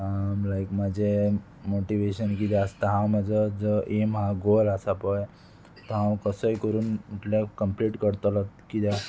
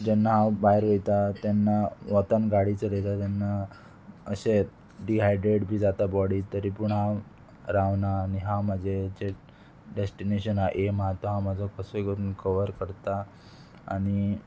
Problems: constant background noise